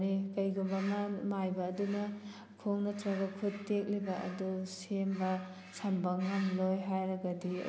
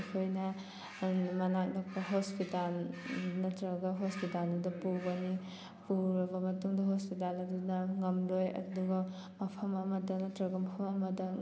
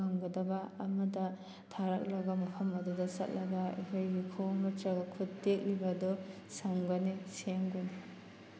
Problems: constant background noise